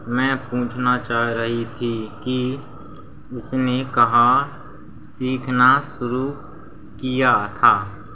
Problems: constant background noise